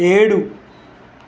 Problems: constant background noise